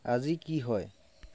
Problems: background sounds at intervals, low volume